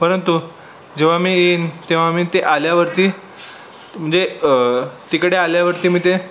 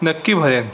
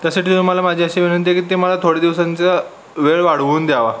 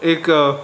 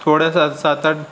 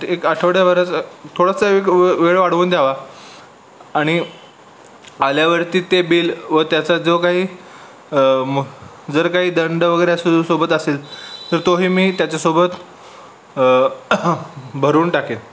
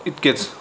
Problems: constant background noise, background conversations at intervals